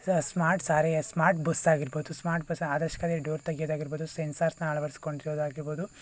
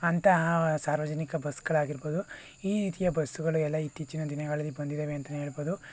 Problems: constant background noise